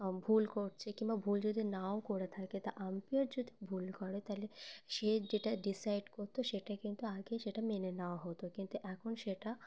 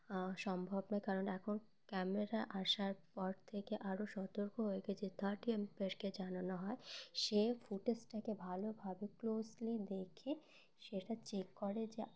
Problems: constant background noise